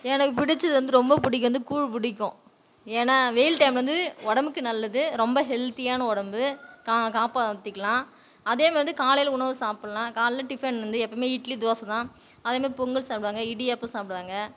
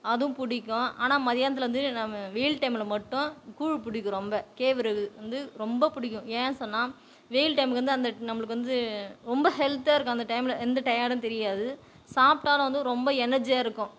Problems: none marked